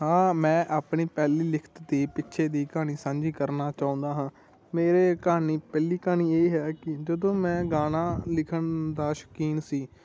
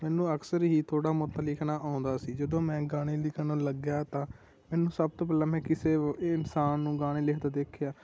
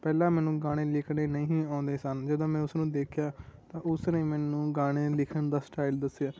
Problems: none marked